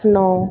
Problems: background sounds at intervals